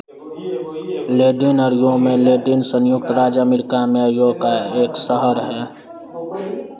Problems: constant background noise